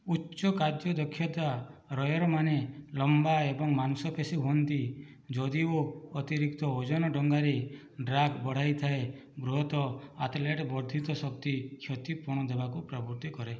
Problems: low volume